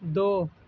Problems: background sounds at intervals